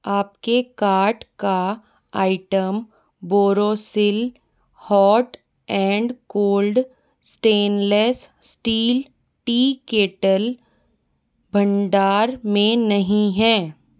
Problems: none marked